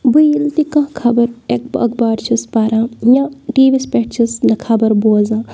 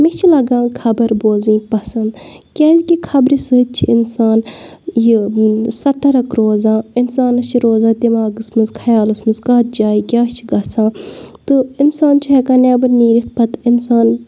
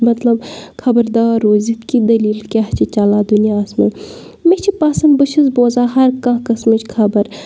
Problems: background sounds at intervals